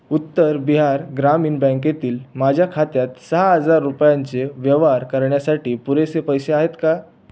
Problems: background sounds at intervals